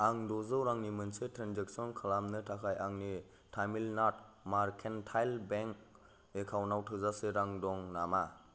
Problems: none marked